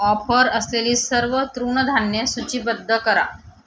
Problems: background sounds at intervals